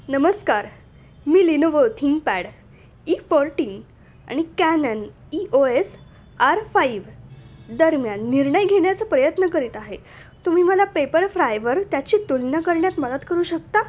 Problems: background sounds at intervals